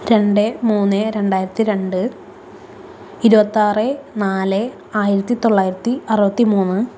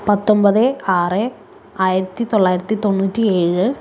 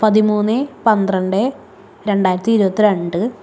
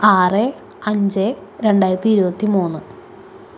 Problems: constant background noise